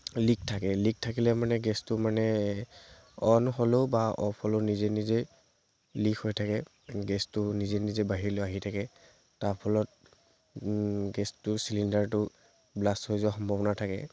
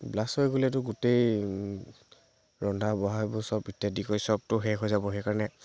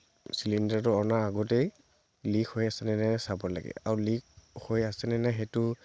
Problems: constant background noise